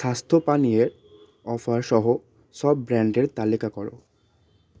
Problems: constant background noise, background conversations at intervals